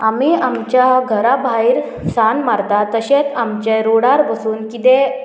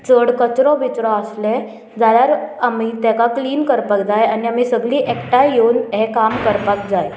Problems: none marked